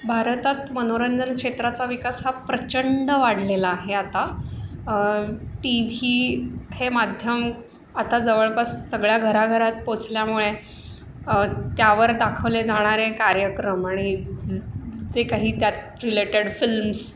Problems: constant background noise